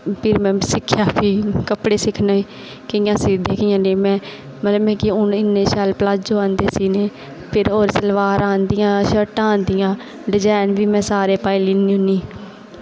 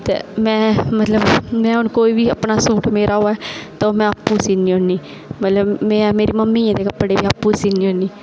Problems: constant background noise